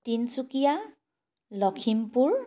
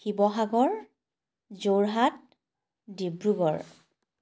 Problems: none marked